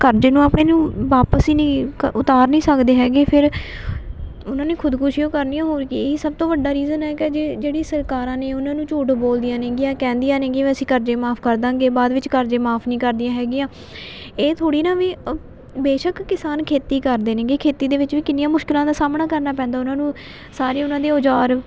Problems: constant background noise